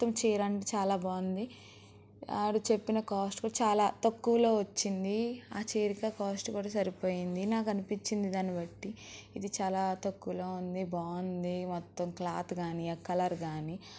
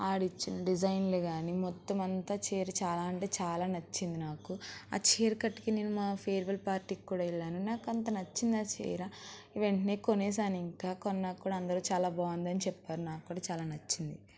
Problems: none marked